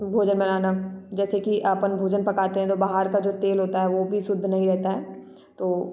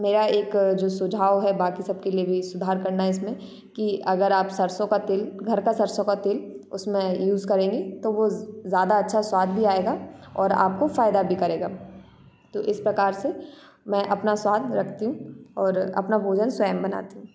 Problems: constant background noise